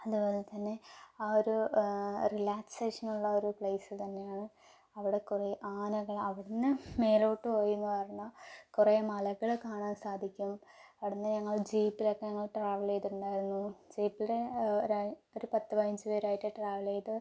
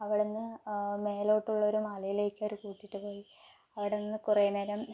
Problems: low volume